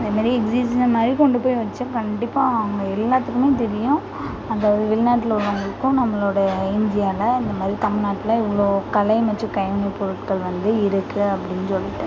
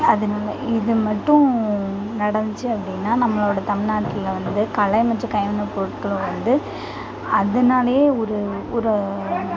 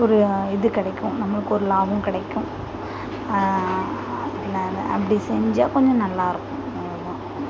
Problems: constant background noise, continuous background conversations